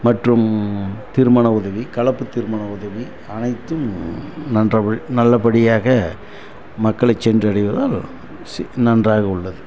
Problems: constant background noise